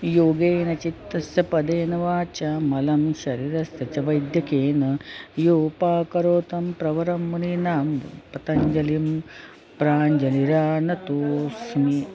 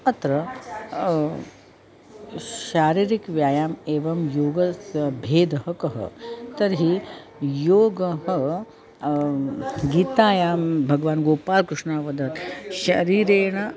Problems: constant background noise